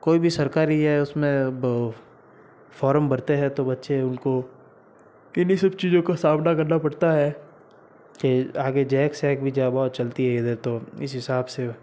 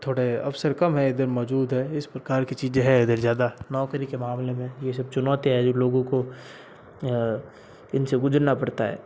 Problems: constant background noise